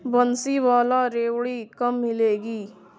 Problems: background sounds at intervals